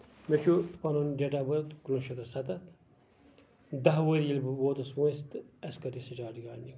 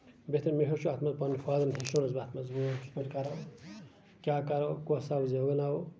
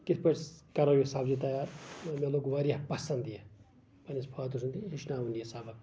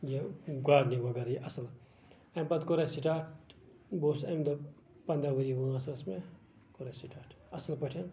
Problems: none marked